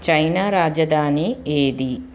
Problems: constant background noise